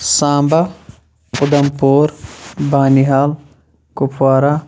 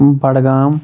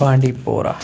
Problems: none marked